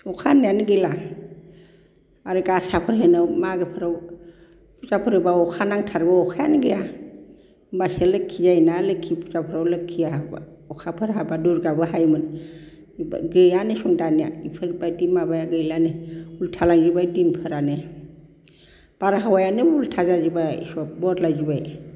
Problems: none marked